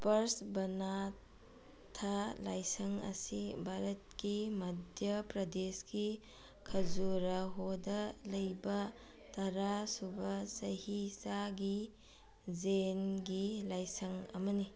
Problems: background conversations at intervals